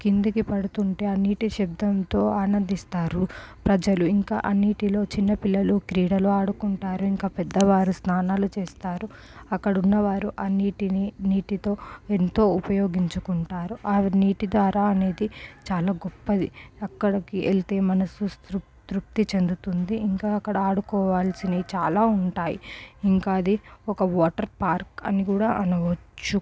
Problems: low volume